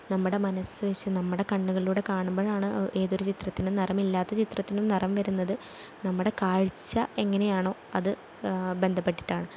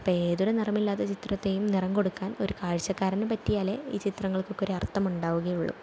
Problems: none marked